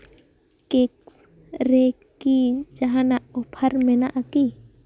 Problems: background sounds at intervals, background conversations at intervals